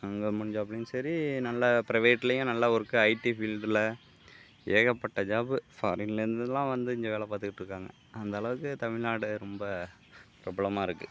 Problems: none marked